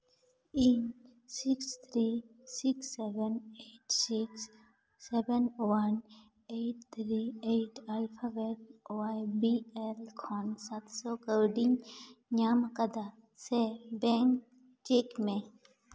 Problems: echo